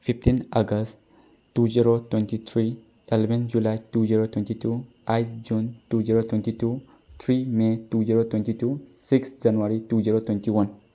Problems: none marked